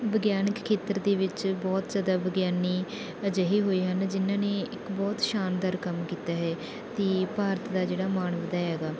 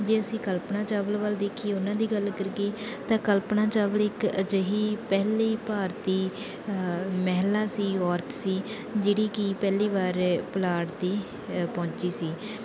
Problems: none marked